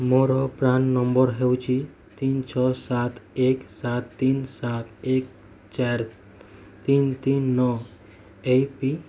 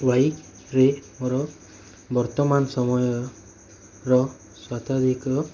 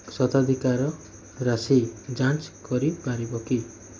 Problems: constant background noise